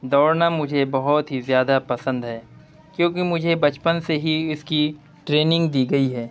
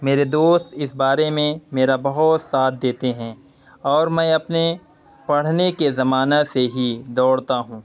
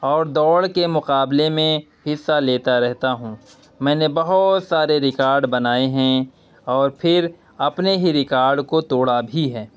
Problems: constant background noise